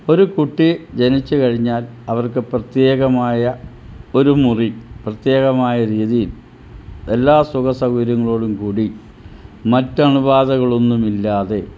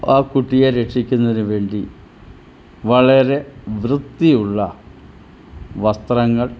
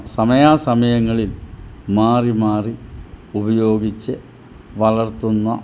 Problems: none marked